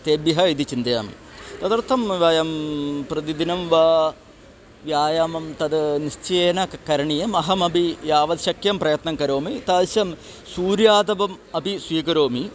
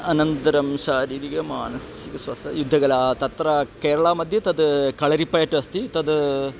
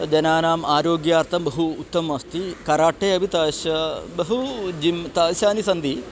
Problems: none marked